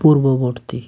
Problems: constant background noise